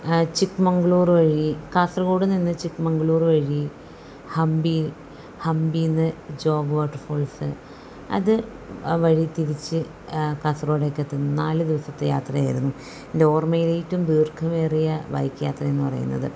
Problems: none marked